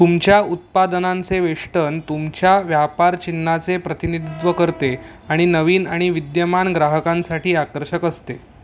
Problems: none marked